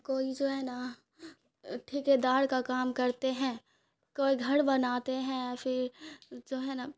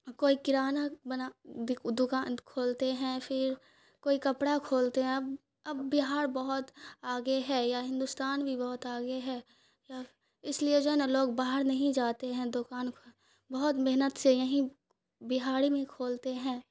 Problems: none marked